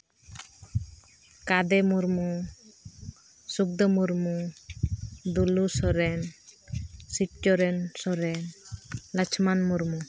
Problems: none marked